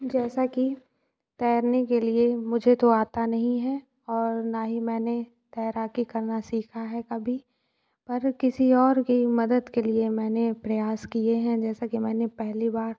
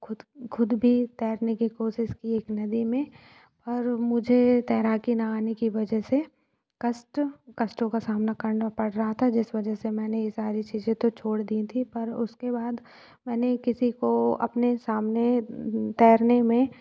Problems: background sounds at intervals